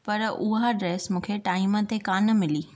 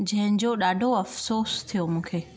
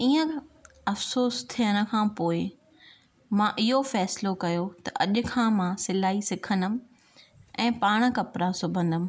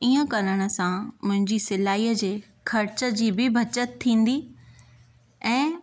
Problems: none marked